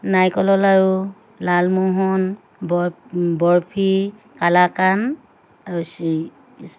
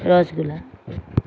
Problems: constant background noise